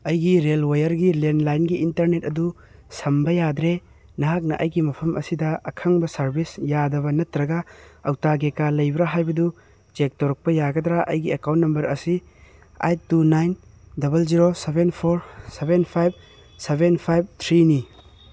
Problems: background sounds at intervals